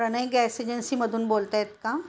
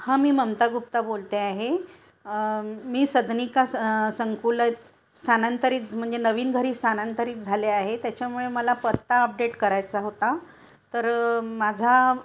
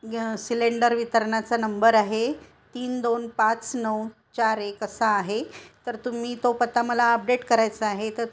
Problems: constant background noise, continuous background conversations